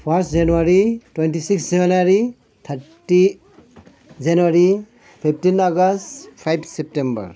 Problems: background conversations at intervals